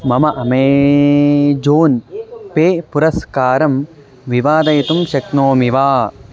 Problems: constant background noise